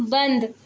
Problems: background sounds at intervals